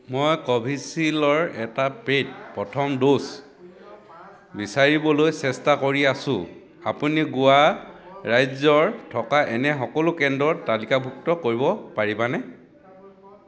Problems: background conversations at intervals